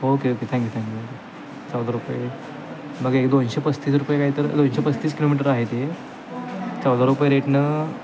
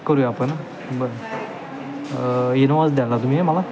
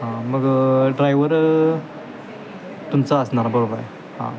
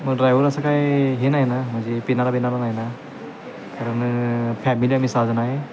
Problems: constant background noise